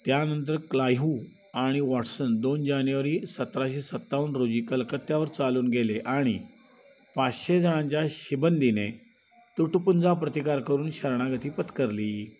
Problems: background sounds at intervals